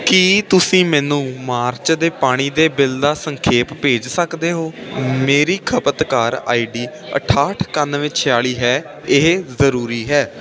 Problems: constant background noise